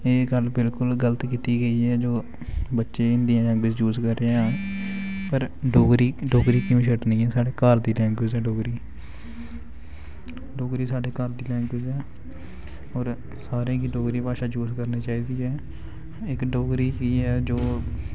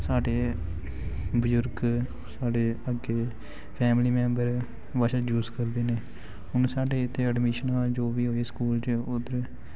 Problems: background sounds at intervals